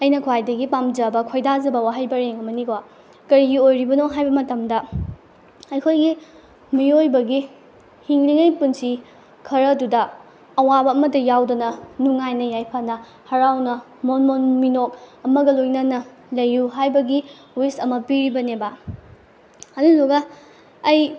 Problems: background sounds at intervals